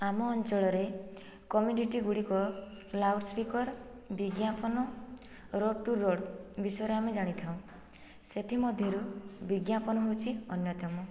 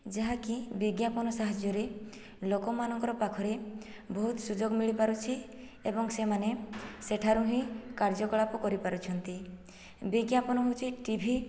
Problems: background sounds at intervals, low volume